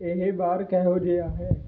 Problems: low volume